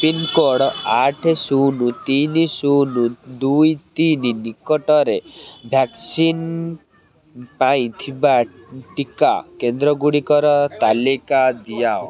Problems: constant background noise, continuous background conversations